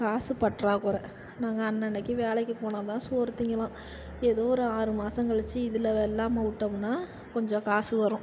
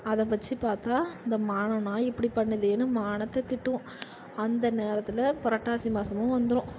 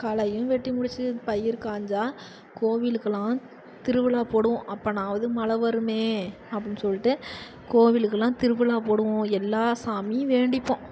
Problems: constant background noise